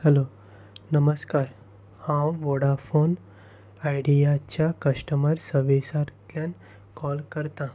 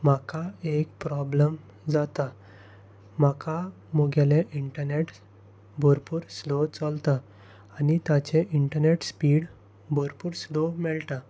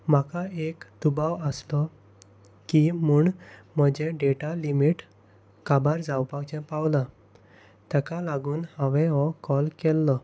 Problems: constant background noise